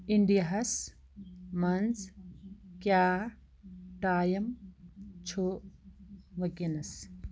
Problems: background sounds at intervals